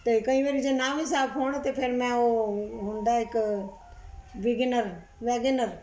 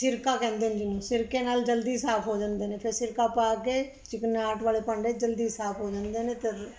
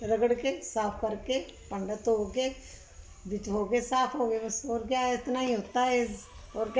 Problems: background sounds at intervals